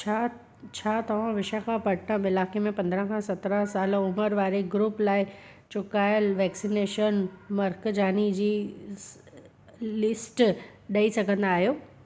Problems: constant background noise, echo